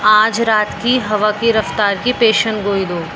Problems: constant background noise